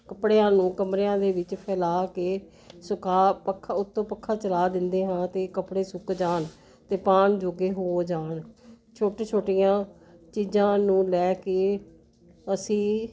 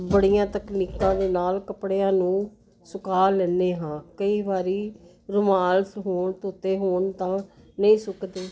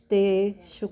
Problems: none marked